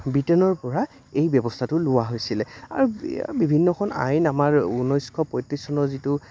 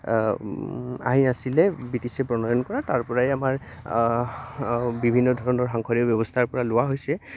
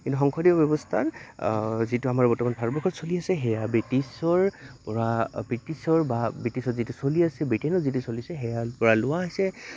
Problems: constant background noise